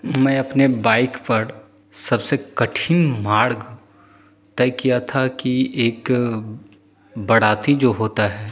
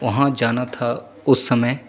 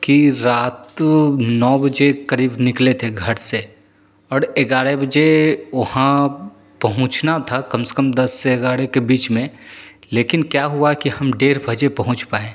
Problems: none marked